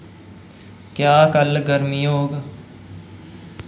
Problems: echo